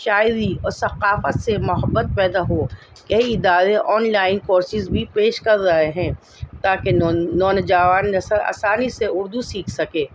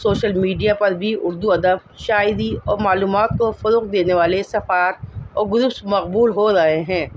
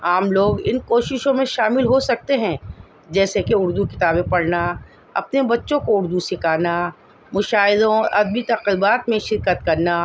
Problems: constant background noise